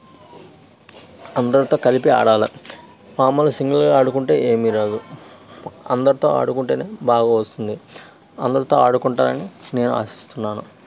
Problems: constant background noise